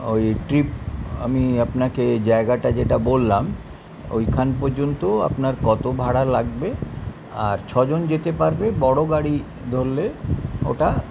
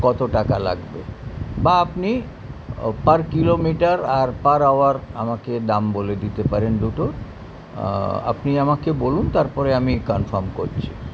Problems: constant background noise, continuous background conversations